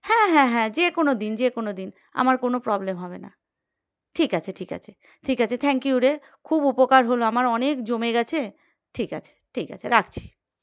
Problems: background sounds at intervals